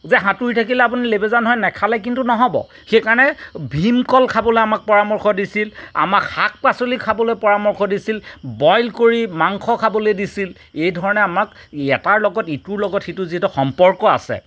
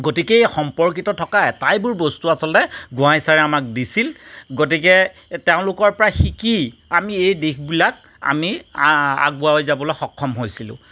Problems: none marked